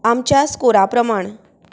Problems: none marked